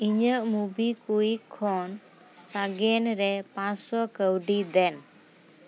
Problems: none marked